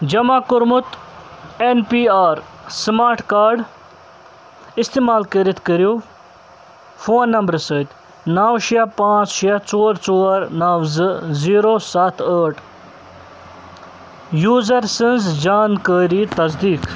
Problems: constant background noise